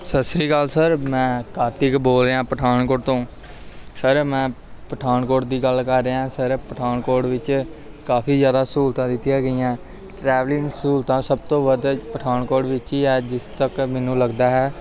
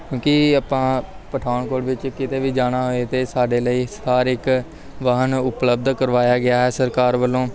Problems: background sounds at intervals, background conversations at intervals